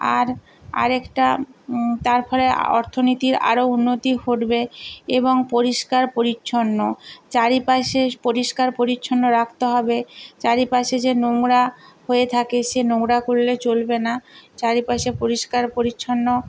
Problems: none marked